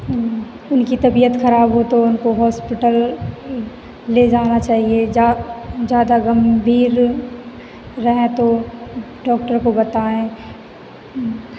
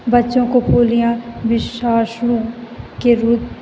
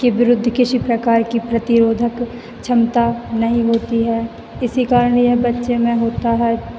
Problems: none marked